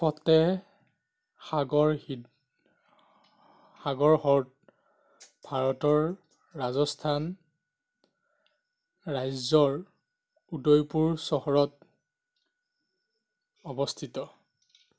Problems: none marked